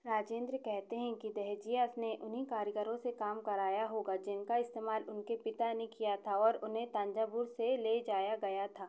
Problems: echo